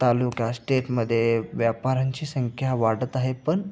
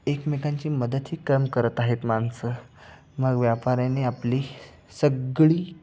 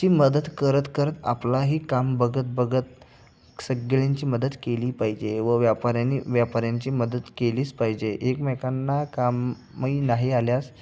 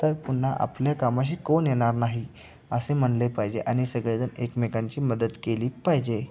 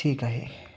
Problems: none marked